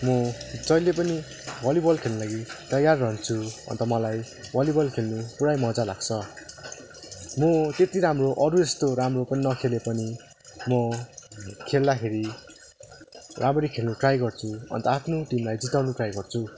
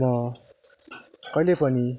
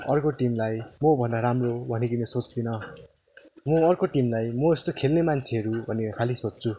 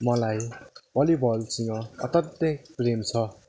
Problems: background sounds at intervals